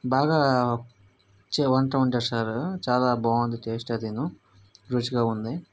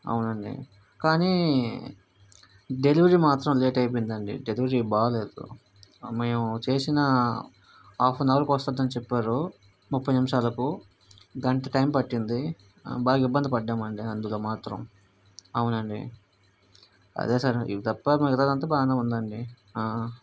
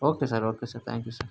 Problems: none marked